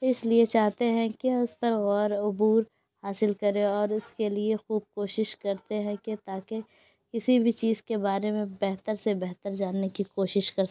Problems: background sounds at intervals